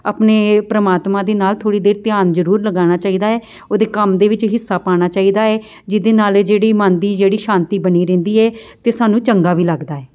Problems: none marked